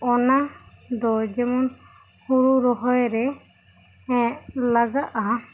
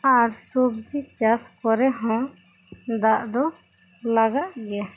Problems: constant background noise